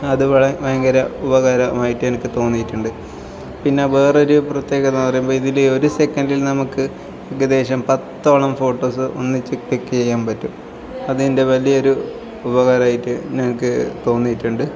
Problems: background sounds at intervals